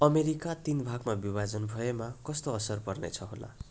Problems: none marked